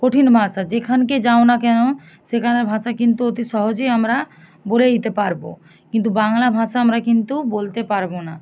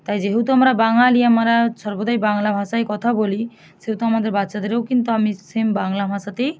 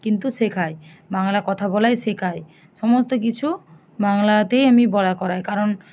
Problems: none marked